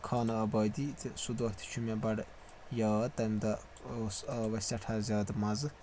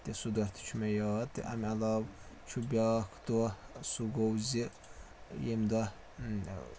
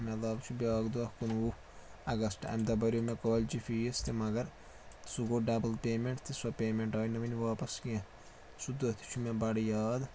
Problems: constant background noise